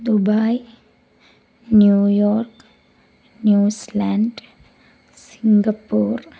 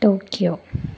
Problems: none marked